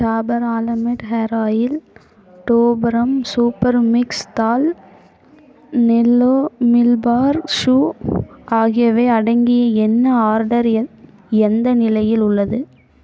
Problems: background conversations at intervals